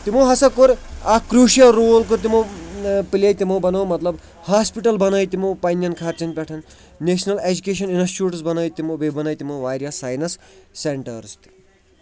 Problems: continuous background conversations